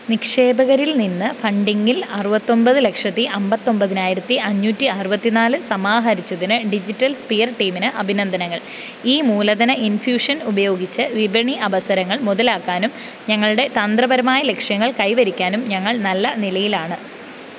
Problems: constant background noise